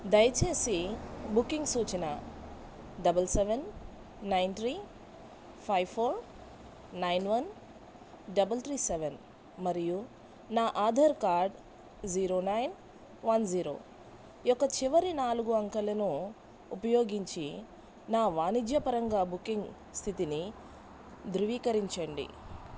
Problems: none marked